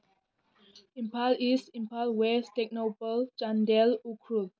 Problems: low volume